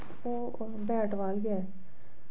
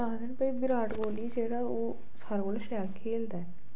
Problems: low volume